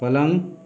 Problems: none marked